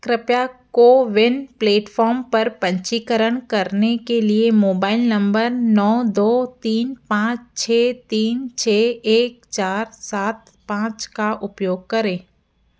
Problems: background sounds at intervals